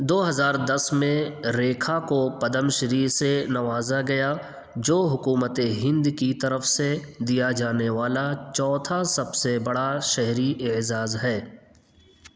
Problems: constant background noise, echo